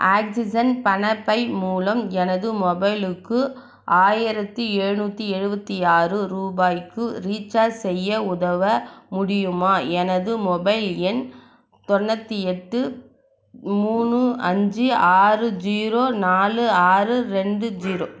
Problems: none marked